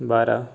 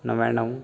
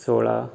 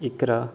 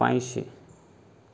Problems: background conversations at intervals